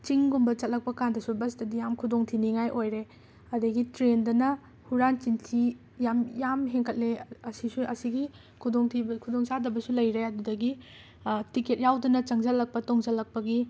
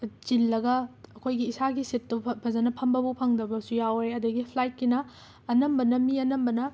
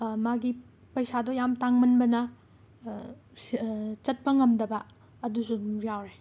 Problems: background sounds at intervals